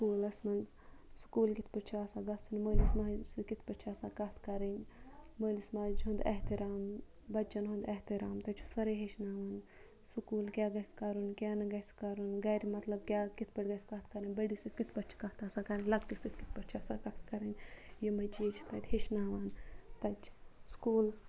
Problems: none marked